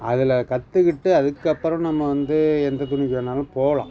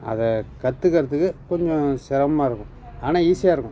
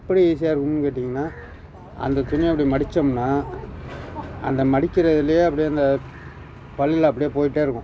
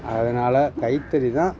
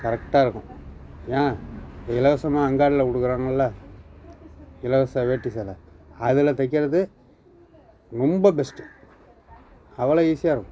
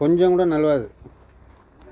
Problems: constant background noise, background conversations at intervals